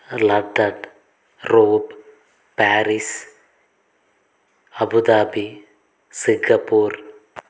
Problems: constant background noise